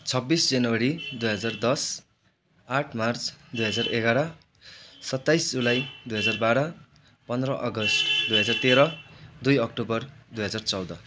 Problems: background conversations at intervals